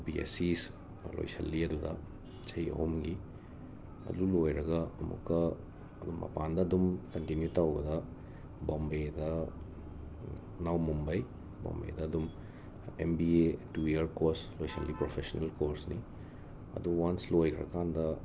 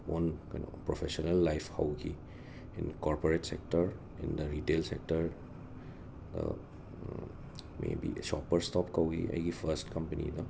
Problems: constant background noise, low volume